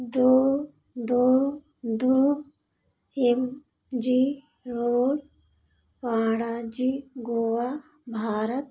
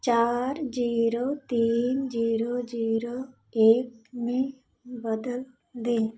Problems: constant background noise, echo